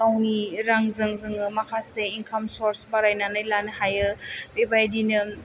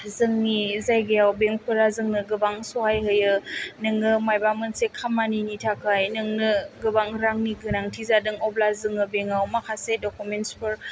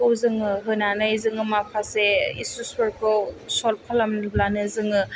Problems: none marked